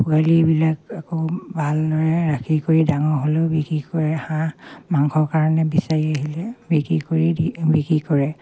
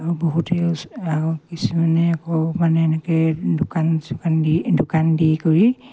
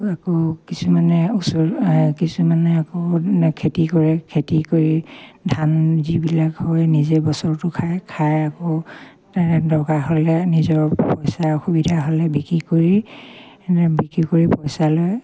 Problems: none marked